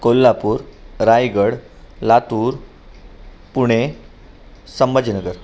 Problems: constant background noise